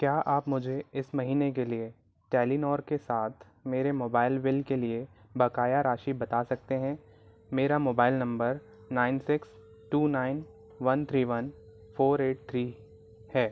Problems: none marked